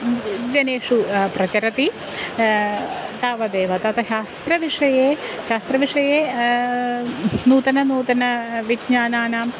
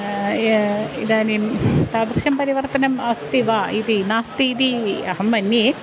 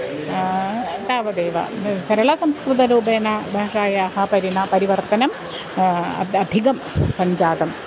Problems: constant background noise